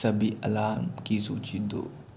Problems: constant background noise